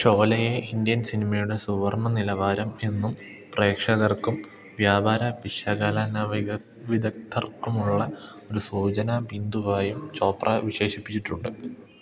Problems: low volume